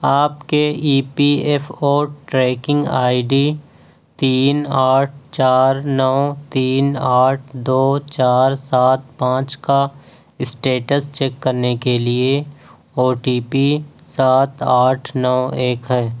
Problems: none marked